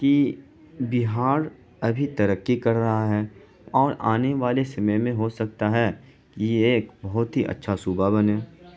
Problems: constant background noise